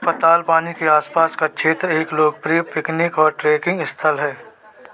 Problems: none marked